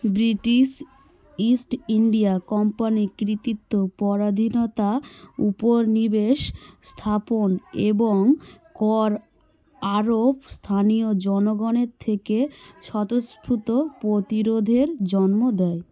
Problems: continuous background conversations